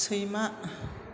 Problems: constant background noise